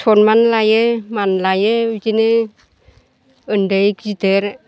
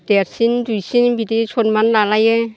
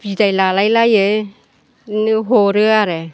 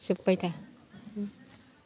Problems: constant background noise